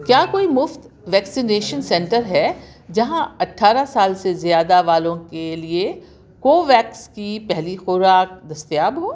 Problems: constant background noise